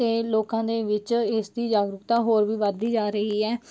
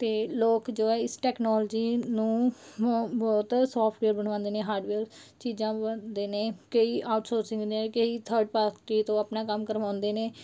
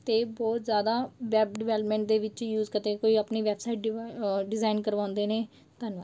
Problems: background sounds at intervals